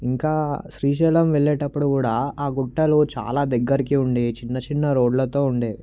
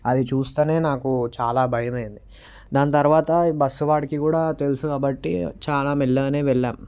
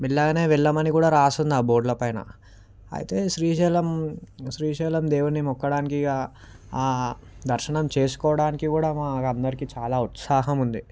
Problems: none marked